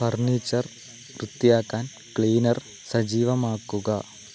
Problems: constant background noise, low volume